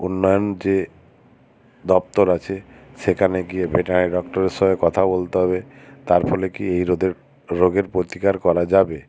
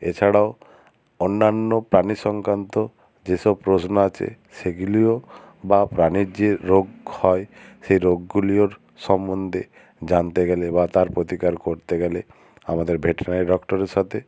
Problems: constant background noise